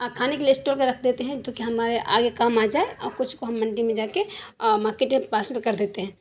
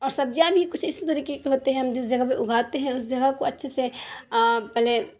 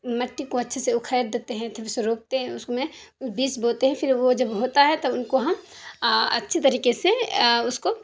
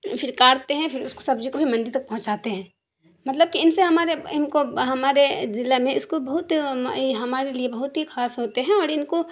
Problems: constant background noise